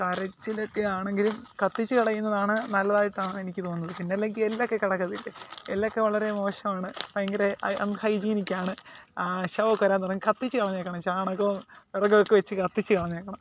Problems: constant background noise